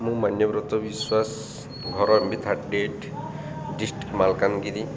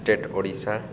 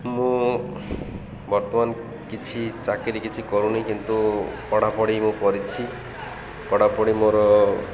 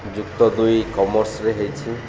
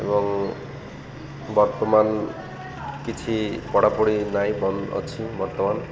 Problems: constant background noise, continuous background conversations